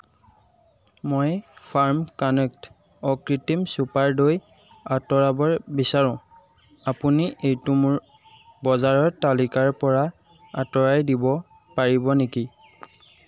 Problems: constant background noise